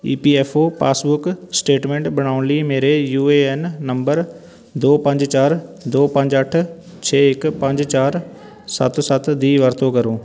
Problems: background sounds at intervals, background conversations at intervals